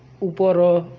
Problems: constant background noise